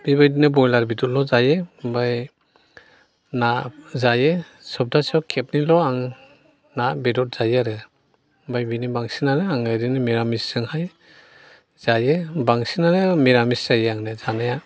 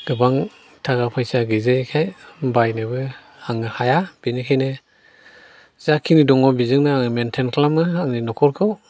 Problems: constant background noise